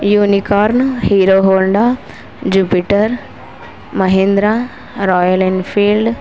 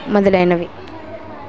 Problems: constant background noise